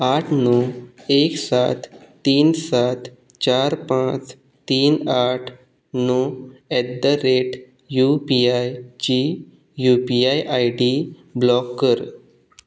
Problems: background sounds at intervals